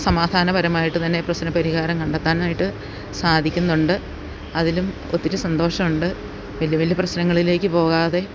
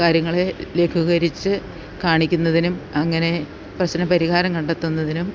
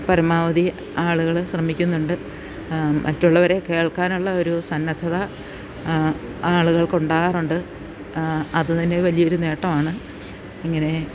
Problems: none marked